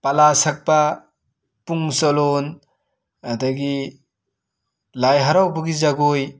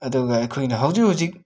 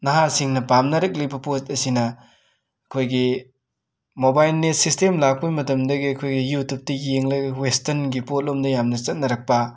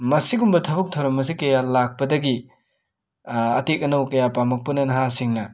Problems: none marked